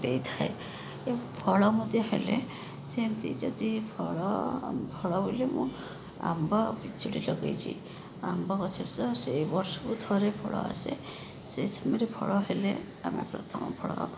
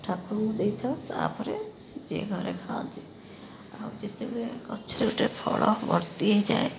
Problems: constant background noise